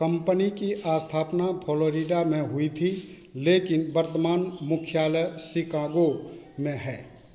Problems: constant background noise